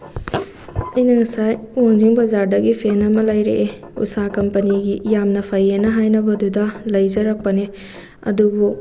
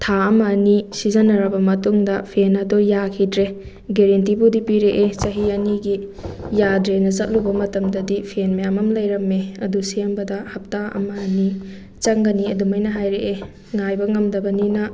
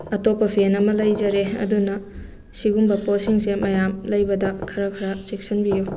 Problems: constant background noise